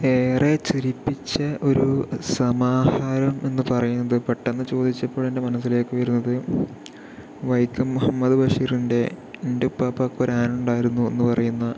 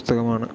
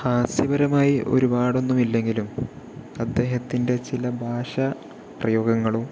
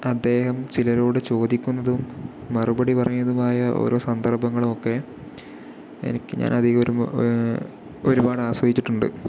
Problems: low volume